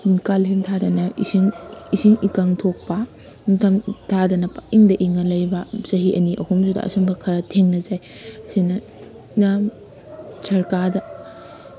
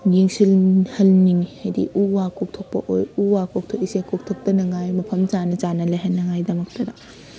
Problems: background conversations at intervals